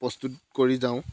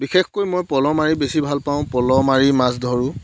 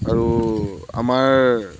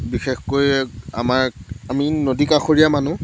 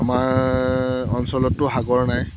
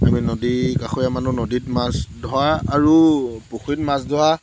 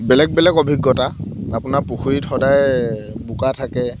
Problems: background sounds at intervals